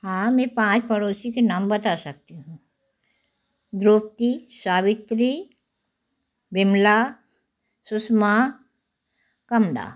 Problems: constant background noise